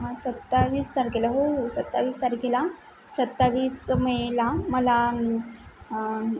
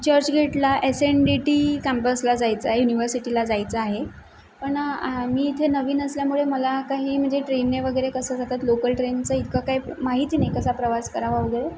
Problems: constant background noise